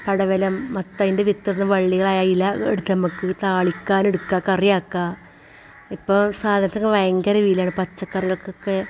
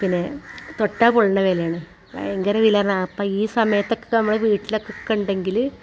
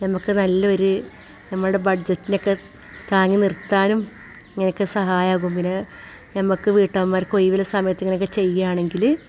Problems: constant background noise